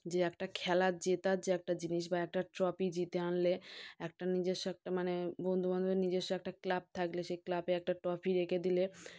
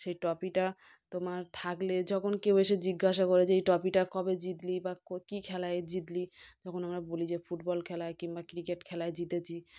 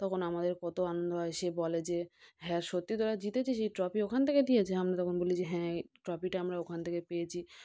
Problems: none marked